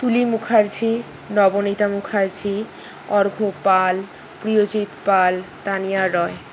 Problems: constant background noise